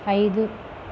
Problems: none marked